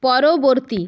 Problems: none marked